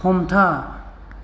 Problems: none marked